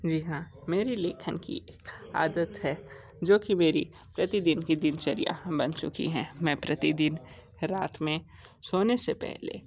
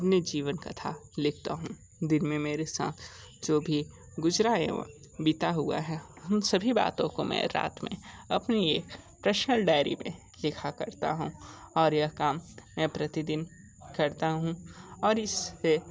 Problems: background sounds at intervals